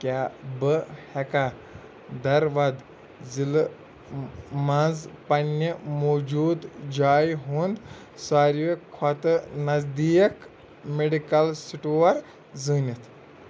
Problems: constant background noise